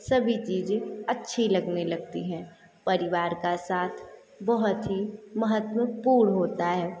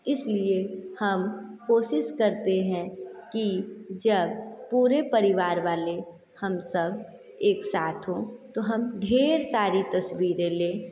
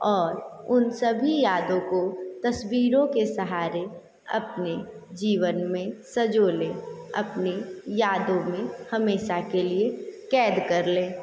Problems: echo